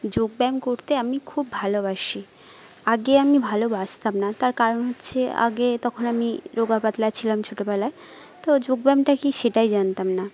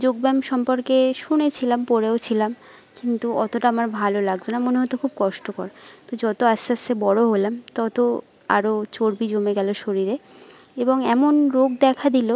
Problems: constant background noise